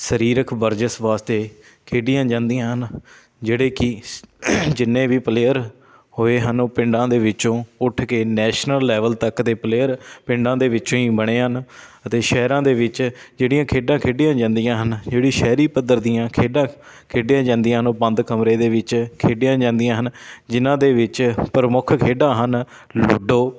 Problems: constant background noise